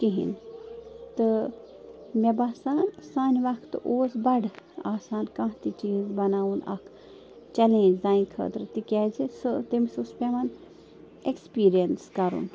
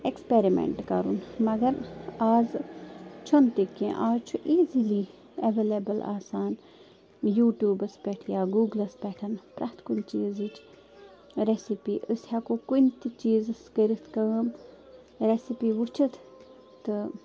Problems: constant background noise